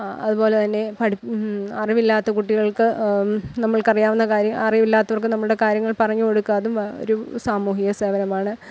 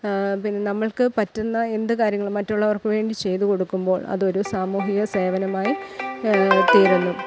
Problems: background sounds at intervals